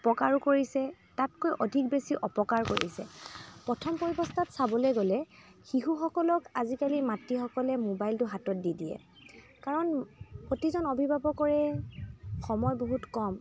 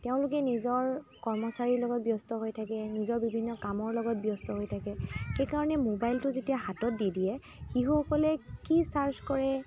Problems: constant background noise, continuous background conversations